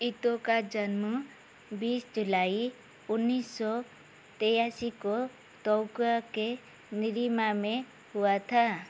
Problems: constant background noise